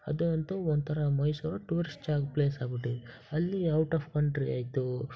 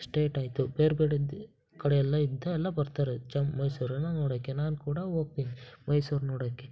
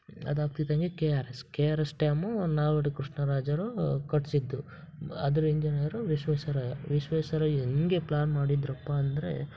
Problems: background sounds at intervals